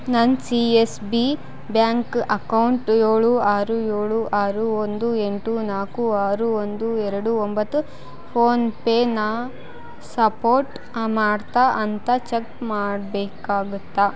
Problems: constant background noise